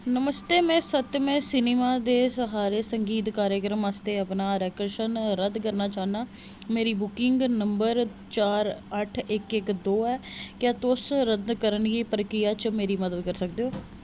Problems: constant background noise